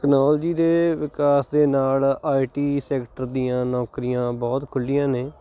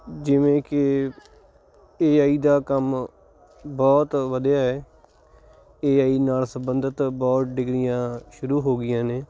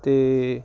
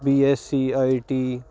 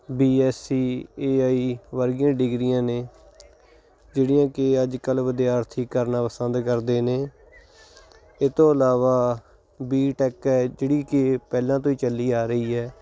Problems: none marked